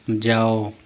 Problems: none marked